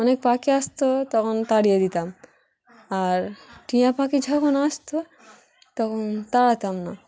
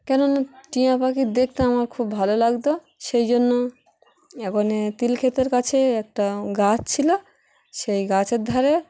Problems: background sounds at intervals, background conversations at intervals